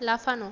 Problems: constant background noise